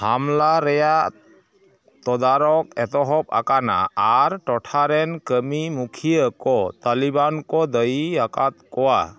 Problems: background sounds at intervals, continuous background conversations